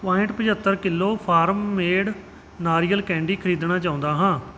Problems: background sounds at intervals